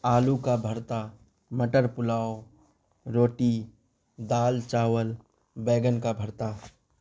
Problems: constant background noise